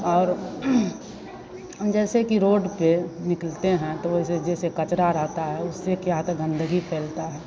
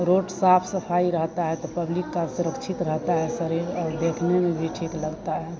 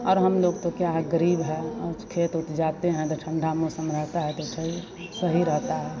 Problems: constant background noise